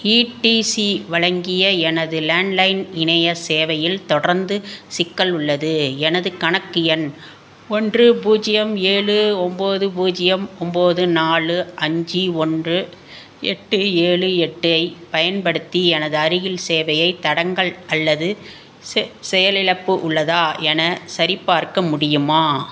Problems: none marked